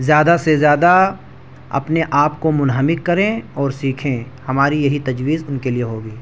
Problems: none marked